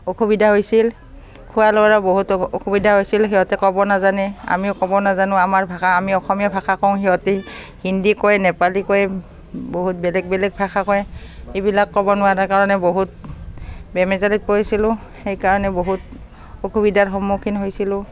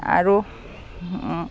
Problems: constant background noise